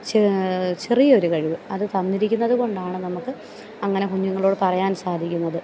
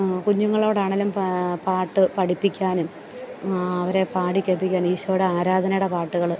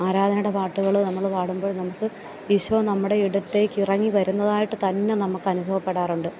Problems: background sounds at intervals, low volume